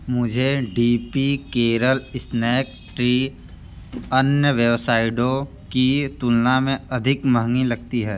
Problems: none marked